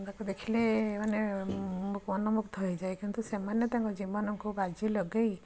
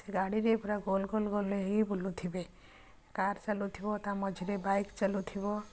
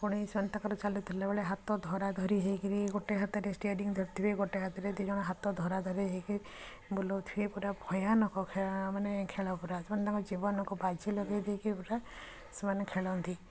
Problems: constant background noise, continuous background conversations